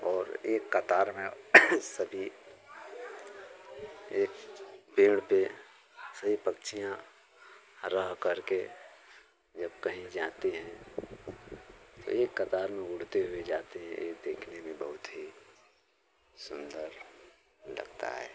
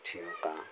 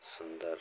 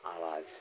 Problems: none marked